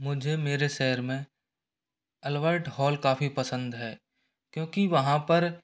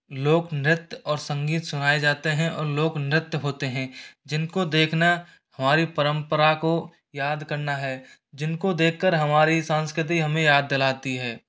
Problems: background sounds at intervals